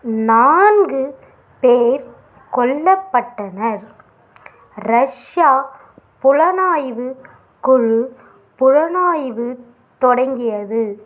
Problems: background sounds at intervals